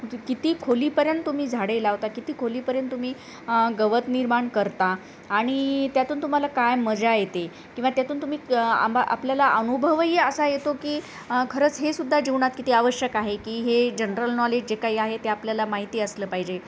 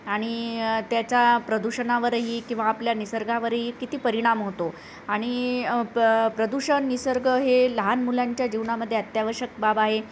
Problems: constant background noise